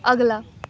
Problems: background conversations at intervals